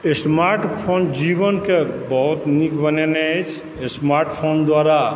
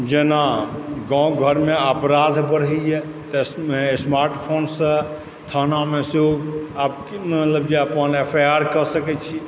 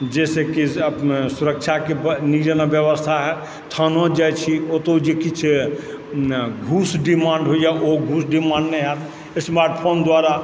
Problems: background sounds at intervals